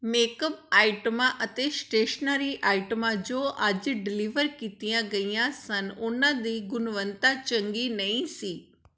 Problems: none marked